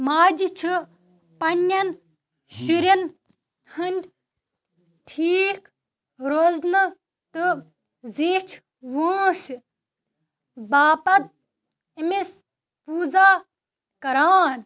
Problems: none marked